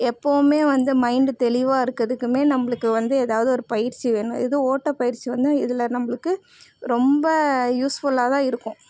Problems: constant background noise